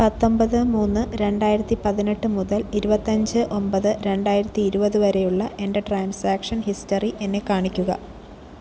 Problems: none marked